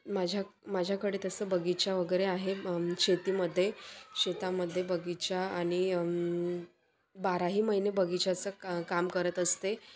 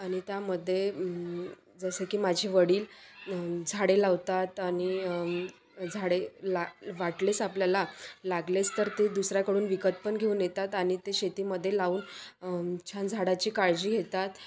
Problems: constant background noise, continuous background conversations